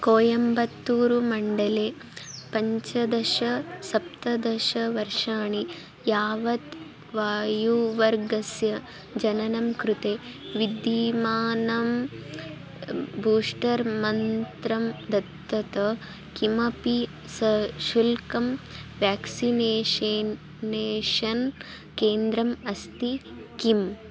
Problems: constant background noise